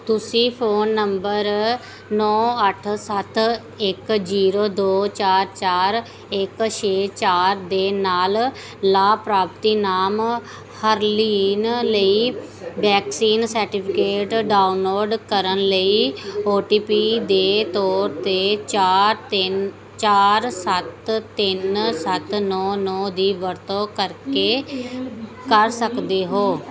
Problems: continuous background conversations